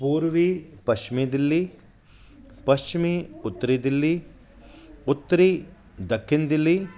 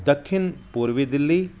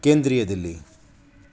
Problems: constant background noise